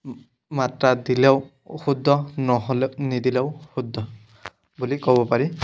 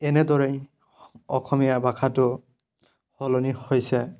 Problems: background sounds at intervals